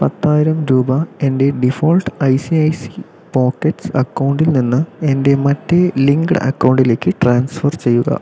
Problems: none marked